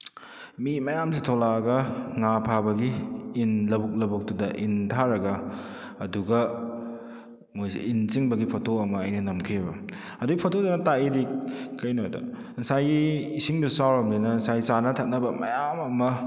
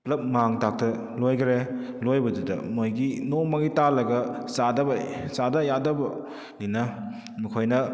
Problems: none marked